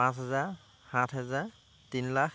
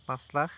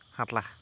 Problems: constant background noise